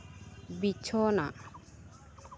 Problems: constant background noise